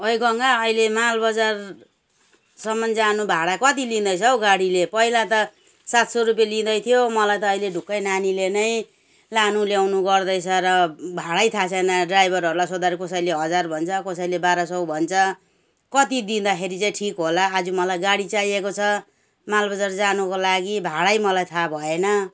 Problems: background conversations at intervals